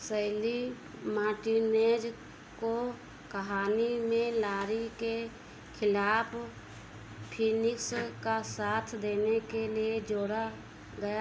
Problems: constant background noise